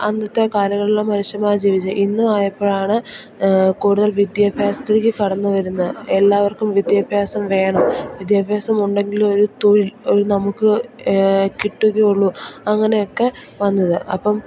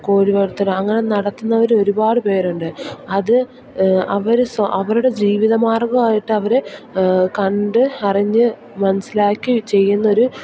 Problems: none marked